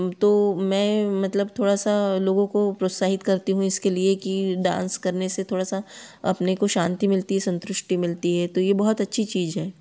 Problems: none marked